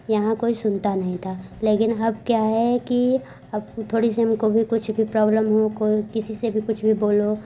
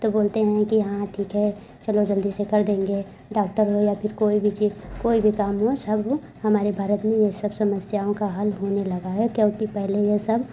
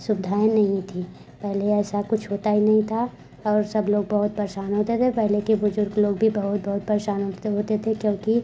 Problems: background sounds at intervals